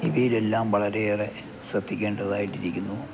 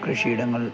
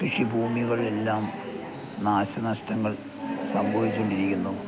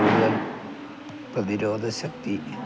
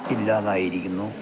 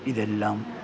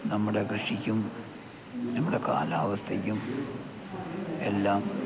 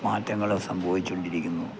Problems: background sounds at intervals